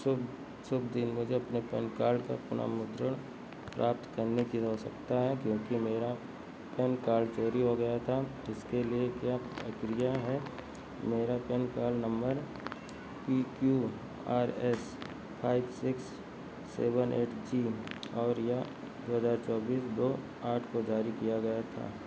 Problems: constant background noise, background conversations at intervals